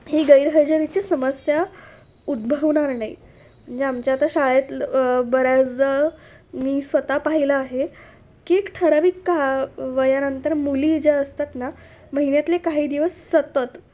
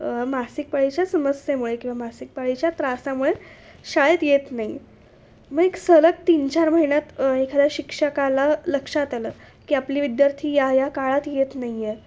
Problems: none marked